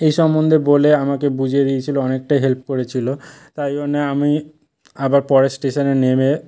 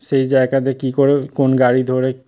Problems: background sounds at intervals